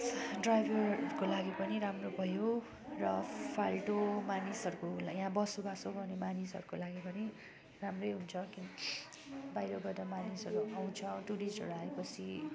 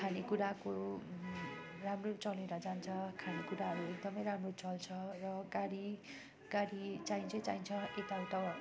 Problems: constant background noise